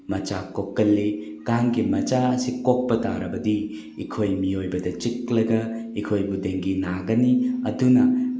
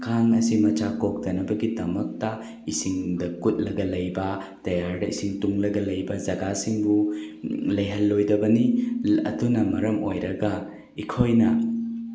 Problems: constant background noise